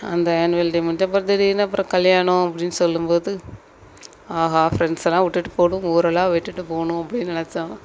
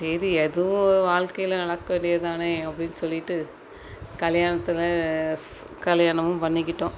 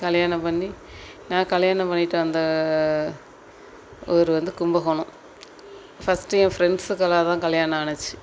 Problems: constant background noise